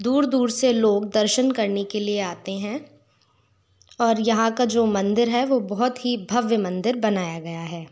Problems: background sounds at intervals